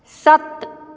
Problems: background sounds at intervals